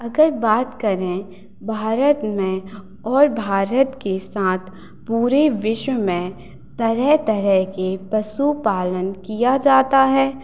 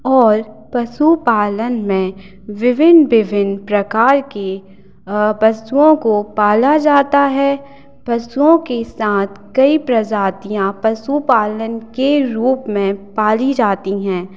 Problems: constant background noise